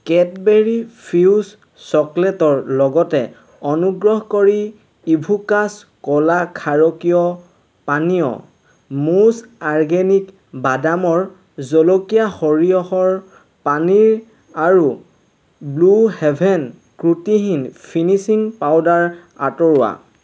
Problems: constant background noise